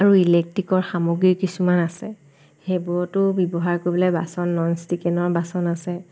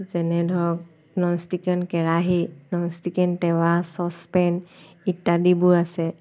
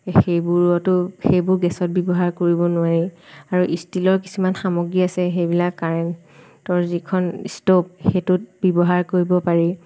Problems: constant background noise